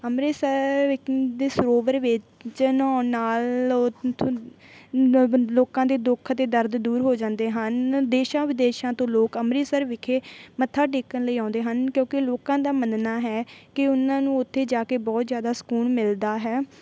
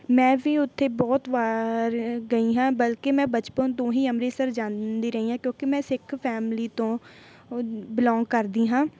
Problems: none marked